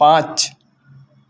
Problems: none marked